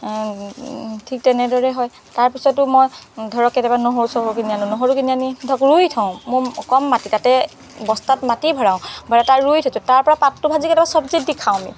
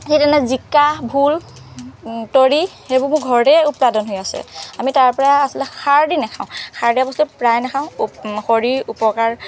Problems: background sounds at intervals, background conversations at intervals